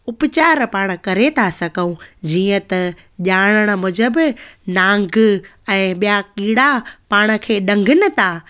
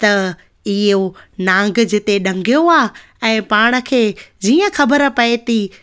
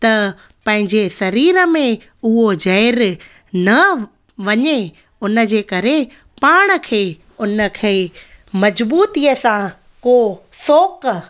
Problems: none marked